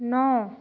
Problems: none marked